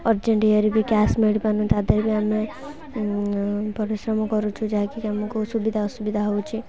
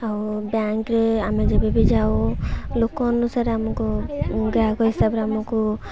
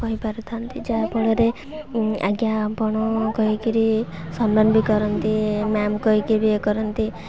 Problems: constant background noise, continuous background conversations